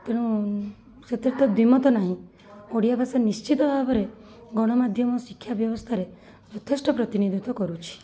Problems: constant background noise, continuous background conversations